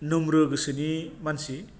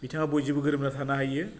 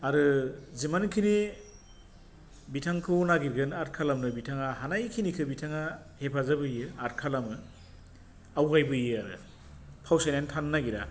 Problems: low volume